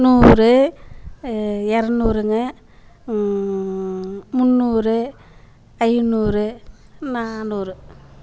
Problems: constant background noise